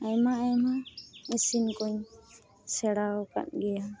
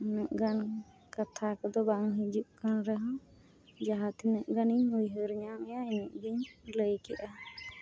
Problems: none marked